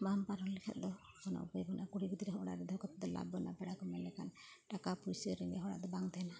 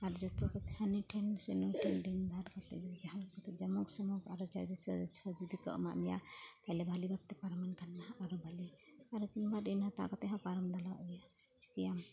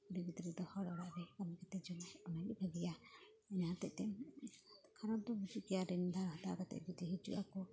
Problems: constant background noise